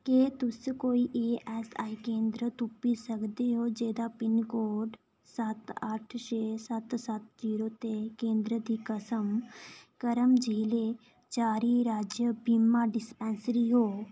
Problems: none marked